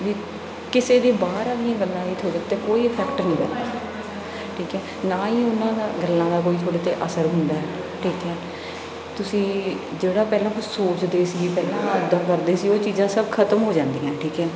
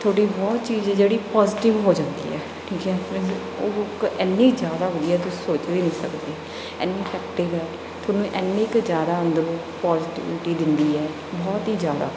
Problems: background sounds at intervals, background conversations at intervals